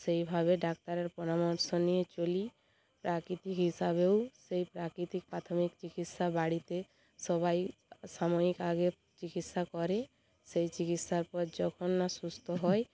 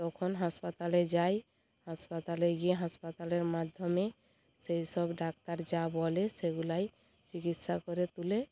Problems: constant background noise, background conversations at intervals